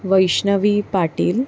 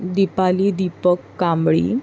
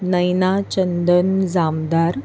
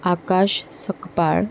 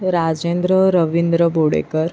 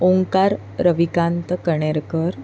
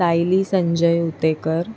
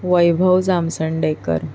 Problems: constant background noise